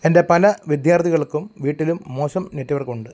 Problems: low volume